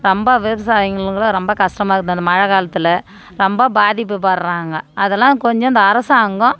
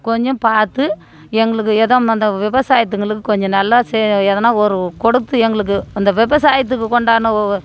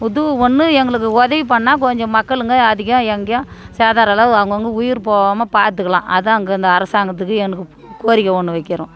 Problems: background conversations at intervals